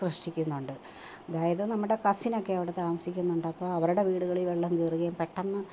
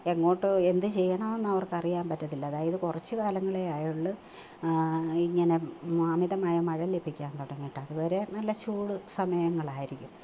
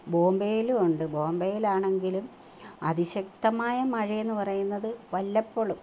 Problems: none marked